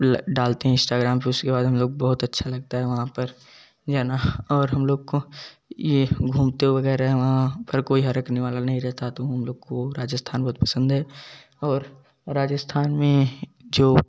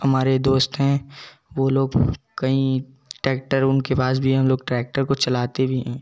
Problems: none marked